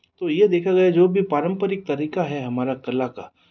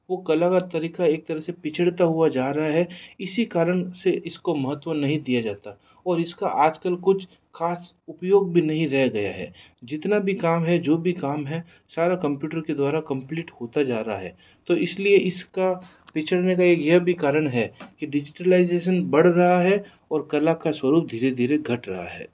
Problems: background conversations at intervals